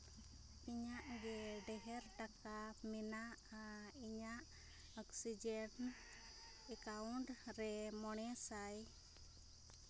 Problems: low volume